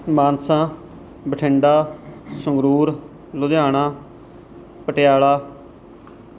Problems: background sounds at intervals